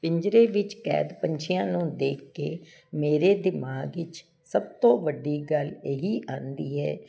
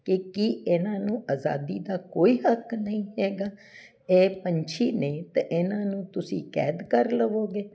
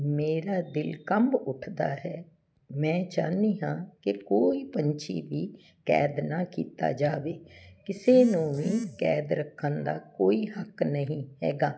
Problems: constant background noise